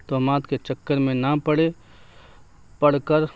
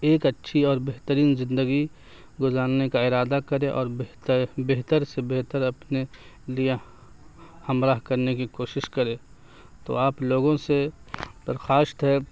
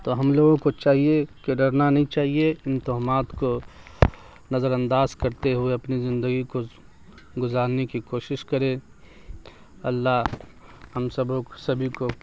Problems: constant background noise